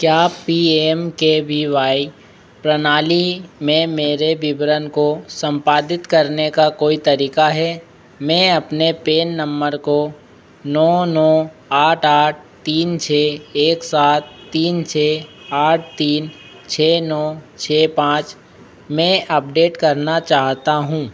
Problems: constant background noise